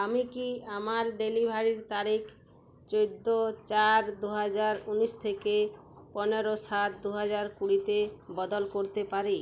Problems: none marked